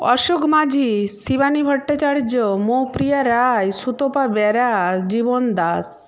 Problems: none marked